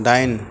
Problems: constant background noise